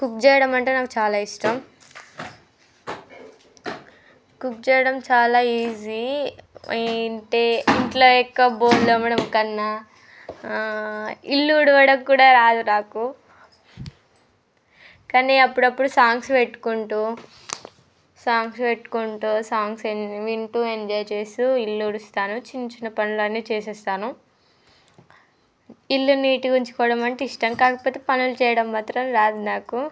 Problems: background conversations at intervals